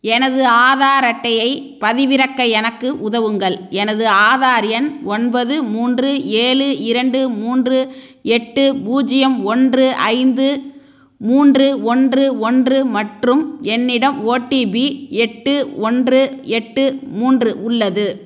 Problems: none marked